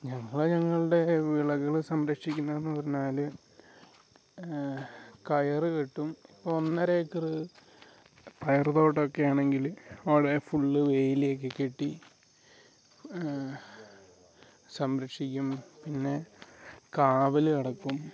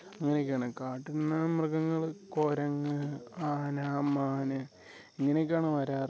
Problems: none marked